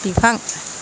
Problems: constant background noise